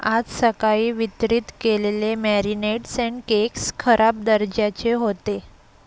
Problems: constant background noise